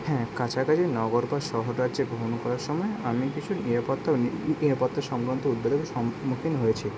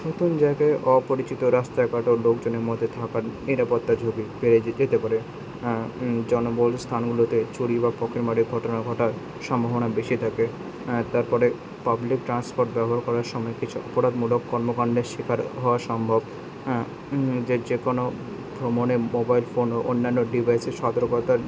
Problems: none marked